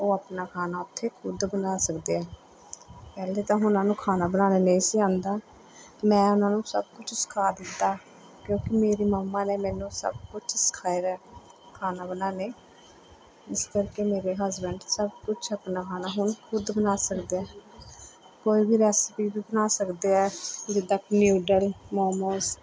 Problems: none marked